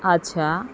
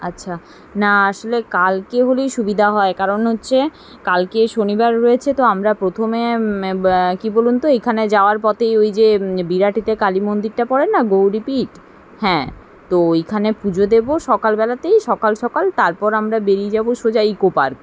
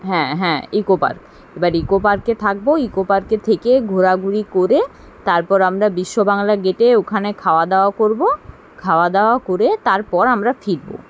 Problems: none marked